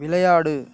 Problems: none marked